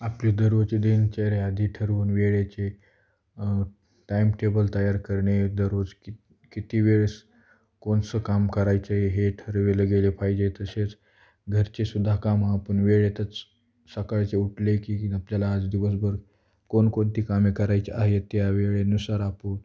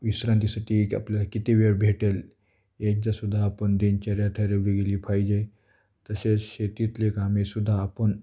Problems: none marked